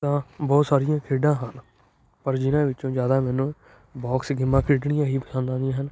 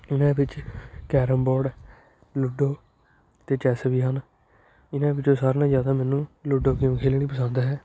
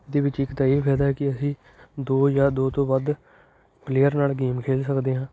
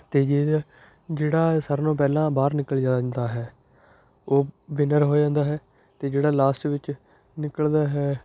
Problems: constant background noise